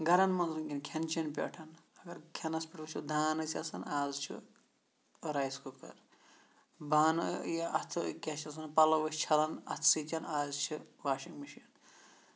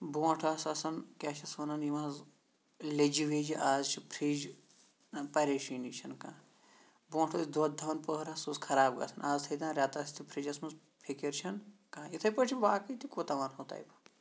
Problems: none marked